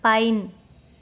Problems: constant background noise